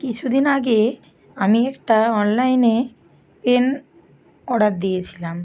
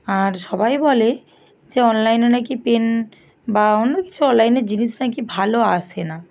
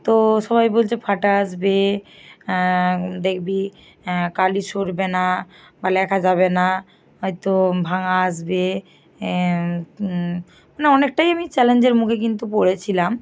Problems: none marked